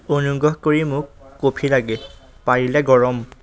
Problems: none marked